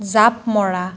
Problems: none marked